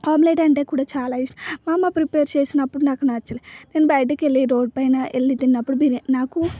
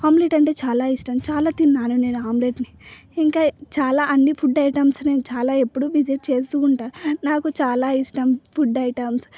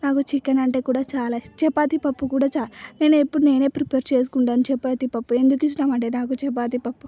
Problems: constant background noise